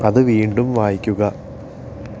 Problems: constant background noise